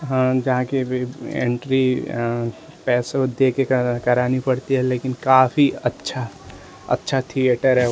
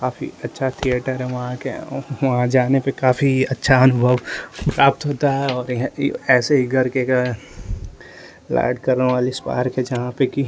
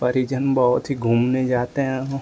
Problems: constant background noise